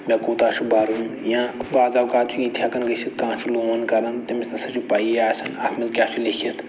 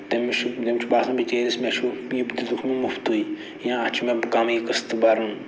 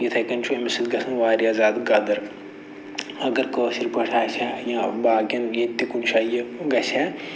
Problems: none marked